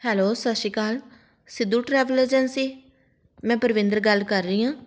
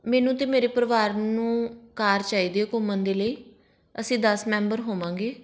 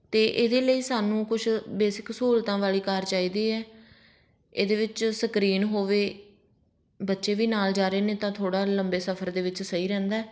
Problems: background sounds at intervals